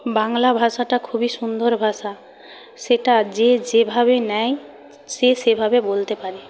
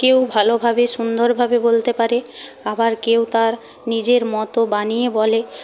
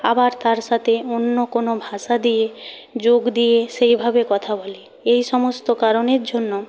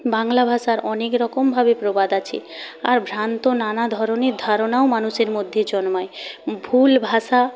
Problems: constant background noise